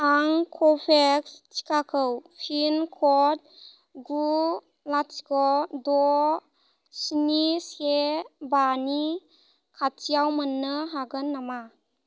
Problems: low volume